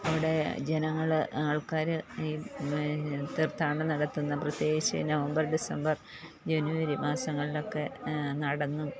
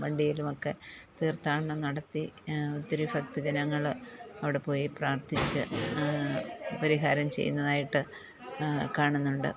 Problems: none marked